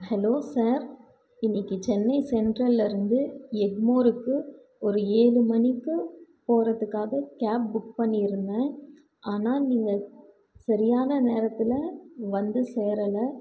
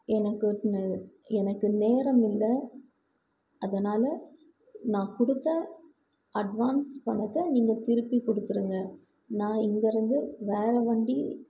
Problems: background conversations at intervals